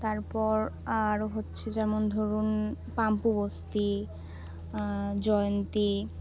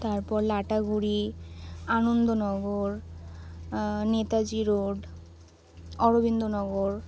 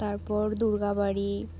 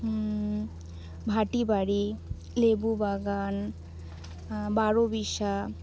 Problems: none marked